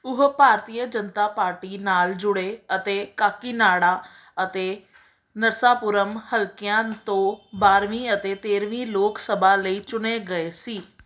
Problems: background sounds at intervals